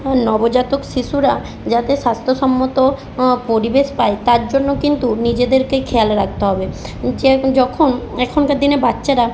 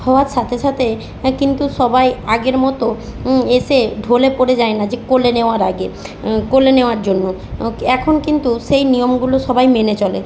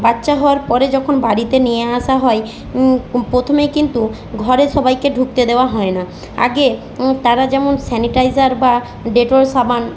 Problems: constant background noise